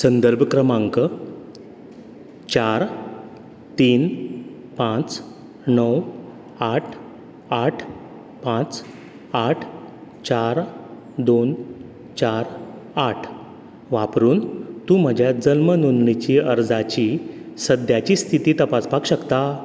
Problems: constant background noise